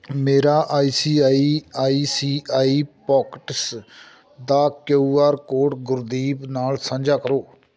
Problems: background sounds at intervals